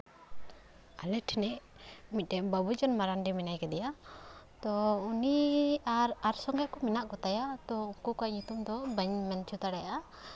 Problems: constant background noise